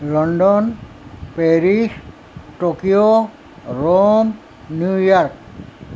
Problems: constant background noise